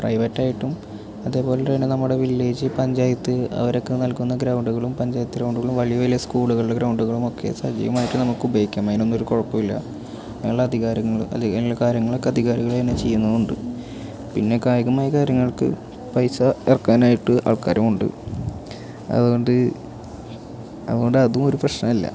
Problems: none marked